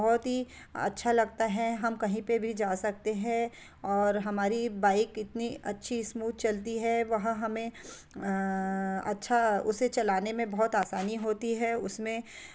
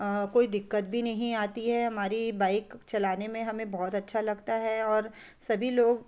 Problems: none marked